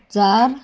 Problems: background sounds at intervals